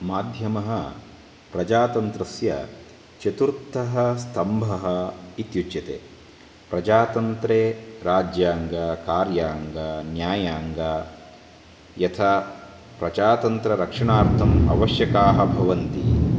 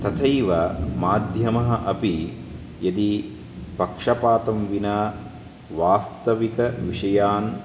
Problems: constant background noise